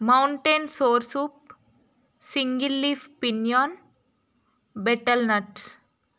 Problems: none marked